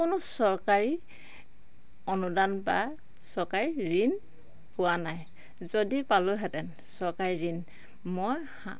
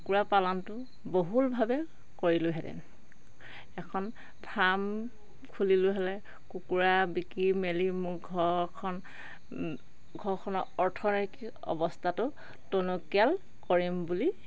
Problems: none marked